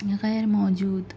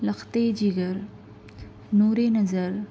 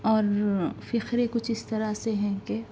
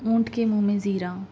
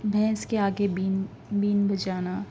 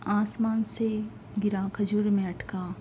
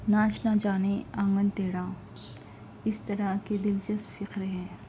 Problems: background sounds at intervals